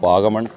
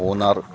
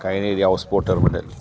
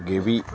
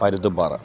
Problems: background sounds at intervals